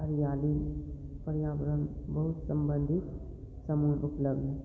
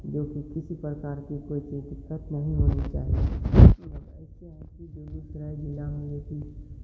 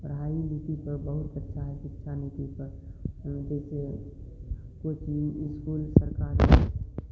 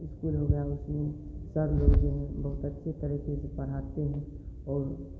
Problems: low volume